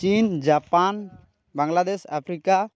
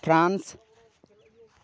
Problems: background sounds at intervals, continuous background conversations